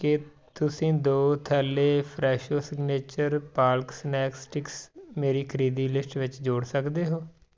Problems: background conversations at intervals